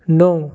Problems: constant background noise